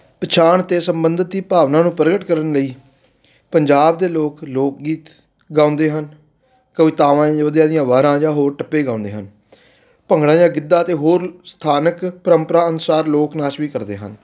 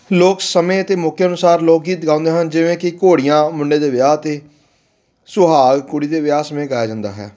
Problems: background sounds at intervals